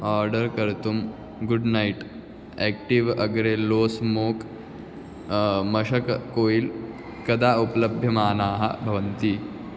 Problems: constant background noise